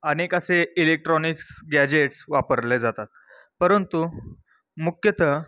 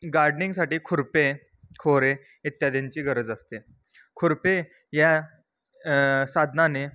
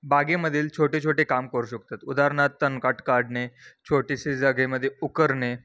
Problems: constant background noise